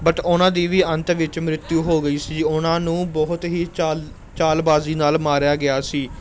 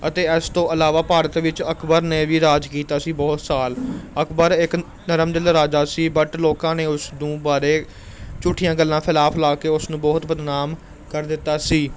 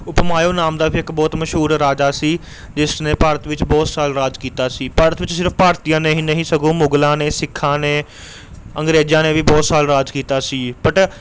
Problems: none marked